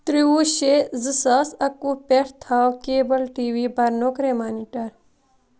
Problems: constant background noise